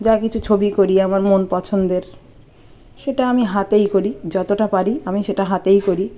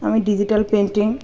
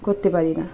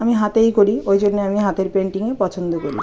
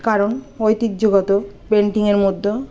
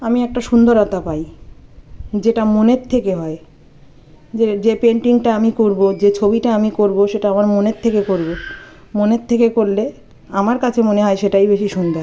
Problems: constant background noise, continuous background conversations